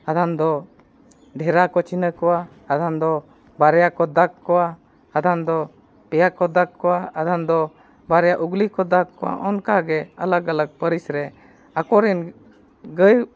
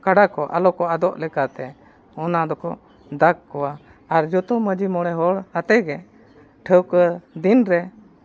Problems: none marked